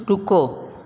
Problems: none marked